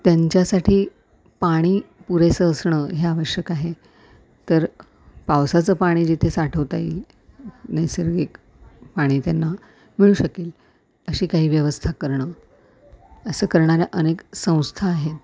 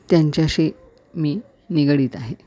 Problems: none marked